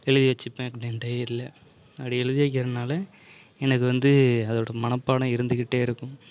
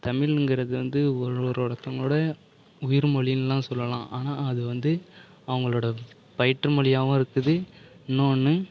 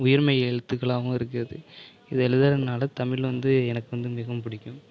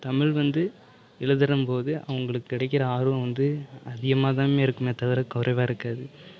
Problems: background conversations at intervals